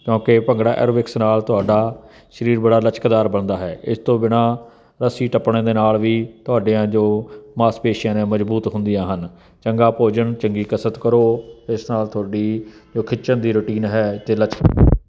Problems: none marked